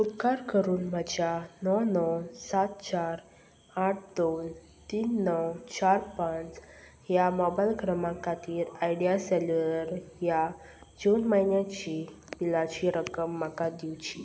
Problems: none marked